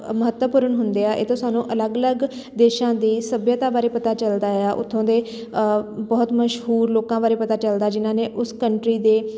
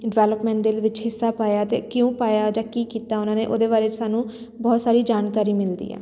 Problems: background sounds at intervals